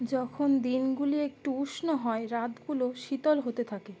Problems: none marked